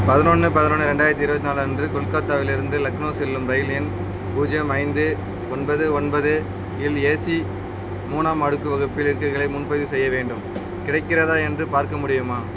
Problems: constant background noise